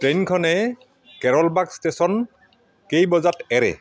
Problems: none marked